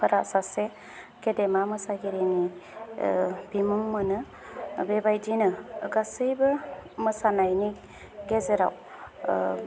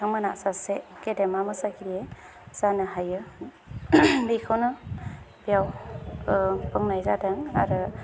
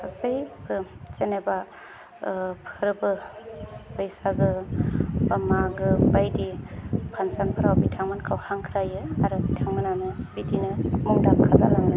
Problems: none marked